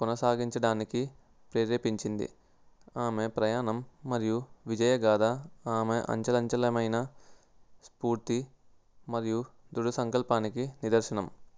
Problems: background sounds at intervals